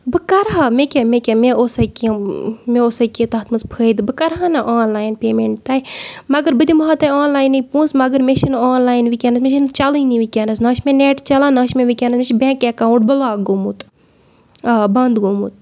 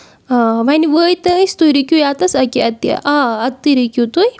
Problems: none marked